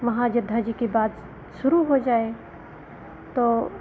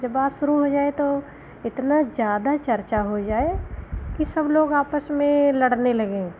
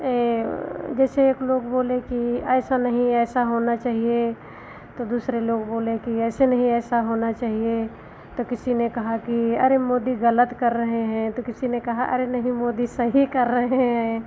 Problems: none marked